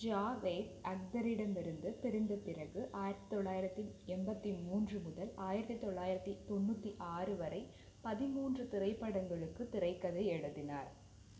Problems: constant background noise, low volume